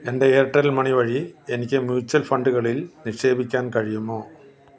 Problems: none marked